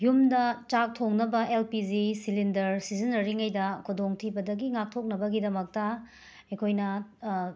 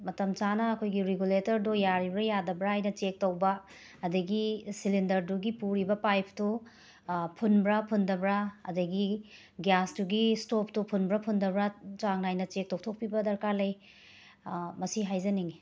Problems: none marked